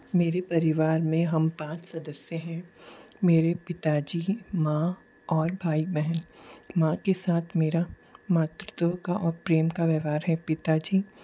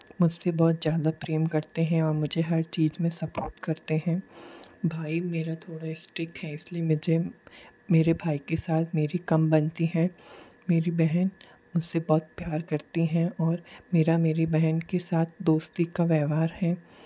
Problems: low volume